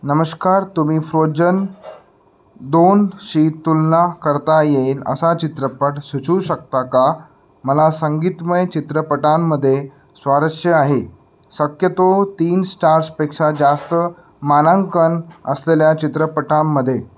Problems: background sounds at intervals